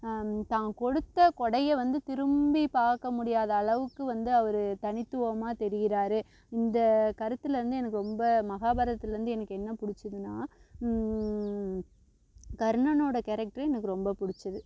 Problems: constant background noise